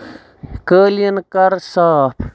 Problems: background sounds at intervals, background conversations at intervals